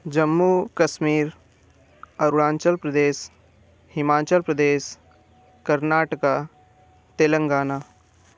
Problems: none marked